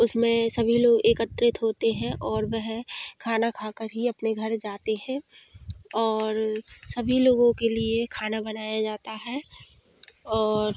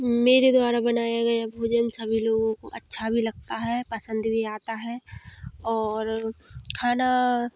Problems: constant background noise